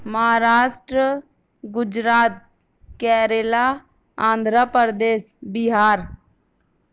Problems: none marked